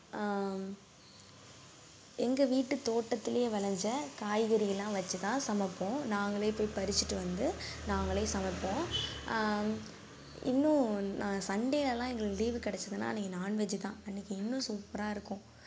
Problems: background sounds at intervals, low volume